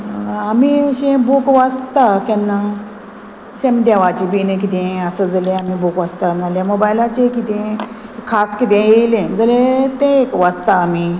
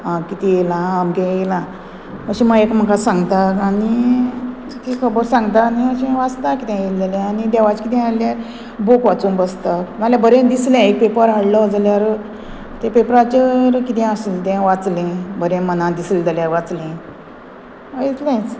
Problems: constant background noise